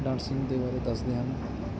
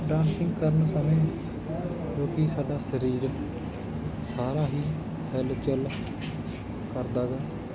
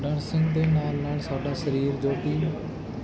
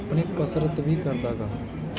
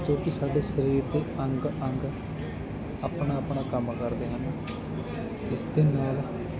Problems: constant background noise